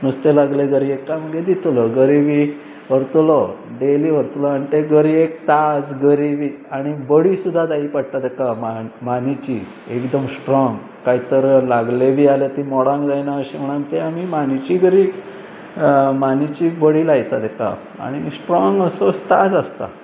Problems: constant background noise